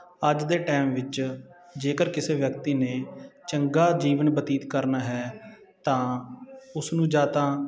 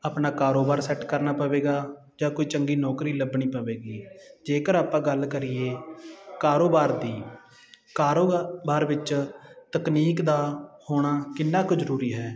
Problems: constant background noise